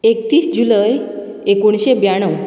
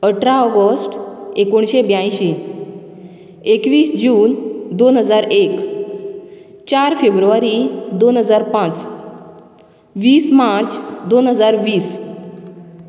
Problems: none marked